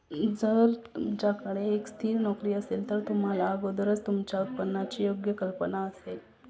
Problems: constant background noise, continuous background conversations